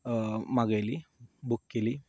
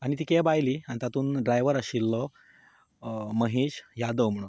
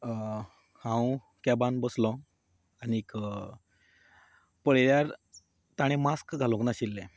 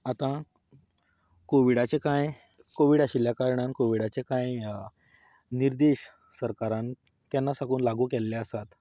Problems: background conversations at intervals